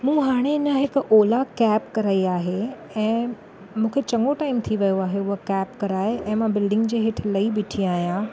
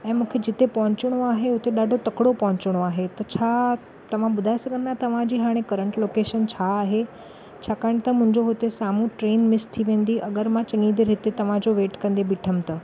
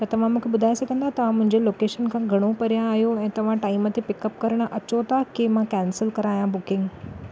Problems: none marked